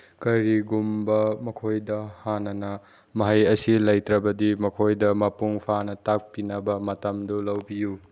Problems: none marked